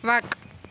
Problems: constant background noise